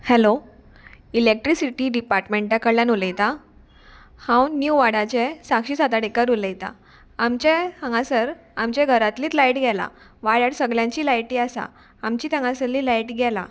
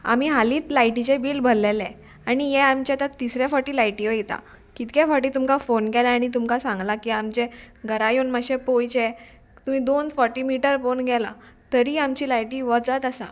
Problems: none marked